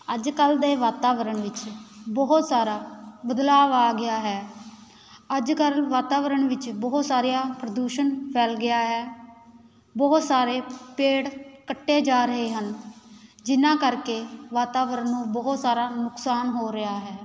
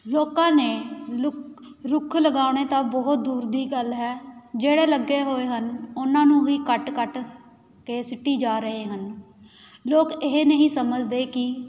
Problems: constant background noise